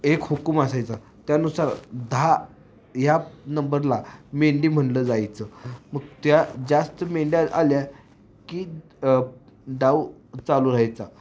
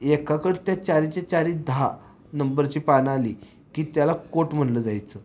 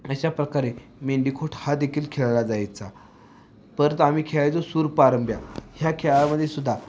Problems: constant background noise